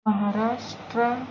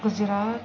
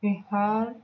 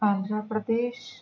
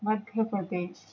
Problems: background sounds at intervals, low volume